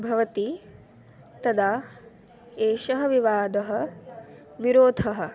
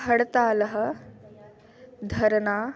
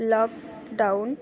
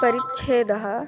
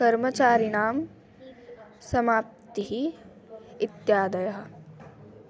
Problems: background sounds at intervals